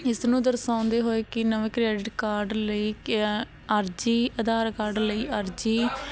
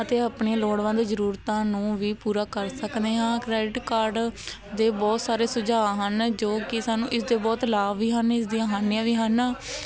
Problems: constant background noise